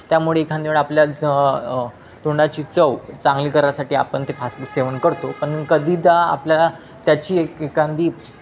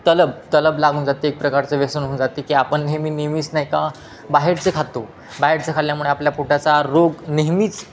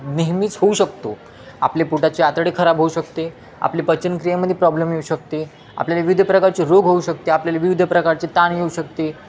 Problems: constant background noise, continuous background conversations